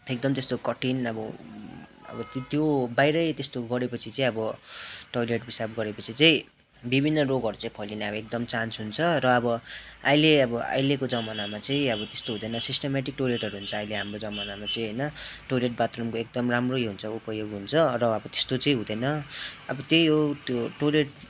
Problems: constant background noise, background conversations at intervals